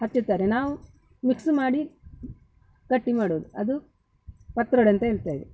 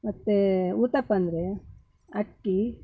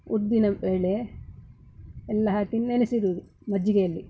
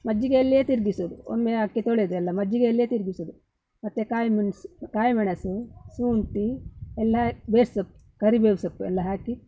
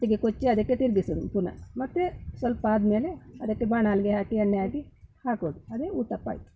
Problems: background sounds at intervals